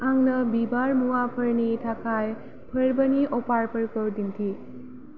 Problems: none marked